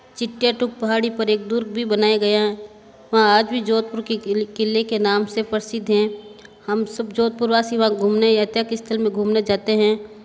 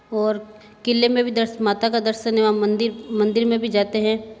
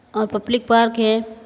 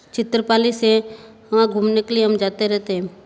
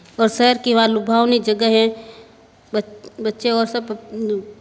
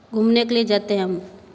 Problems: background sounds at intervals